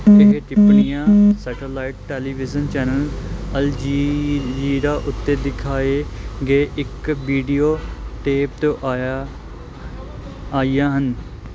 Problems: constant background noise